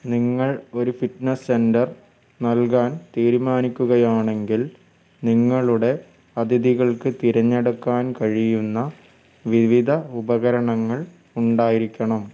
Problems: background sounds at intervals